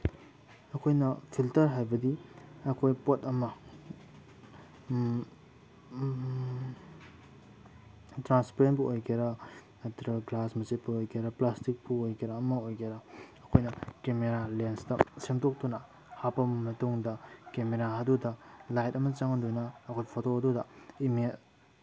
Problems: background sounds at intervals